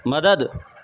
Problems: constant background noise